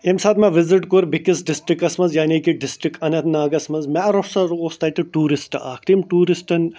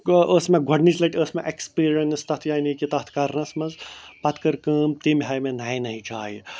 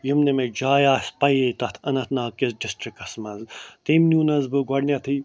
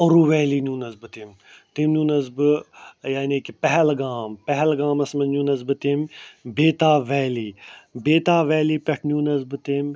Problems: none marked